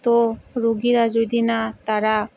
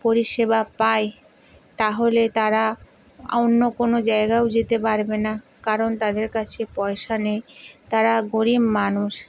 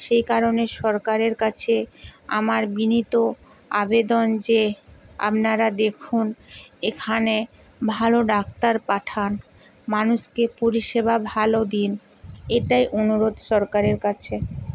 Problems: none marked